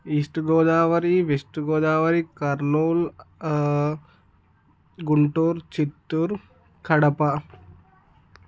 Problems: none marked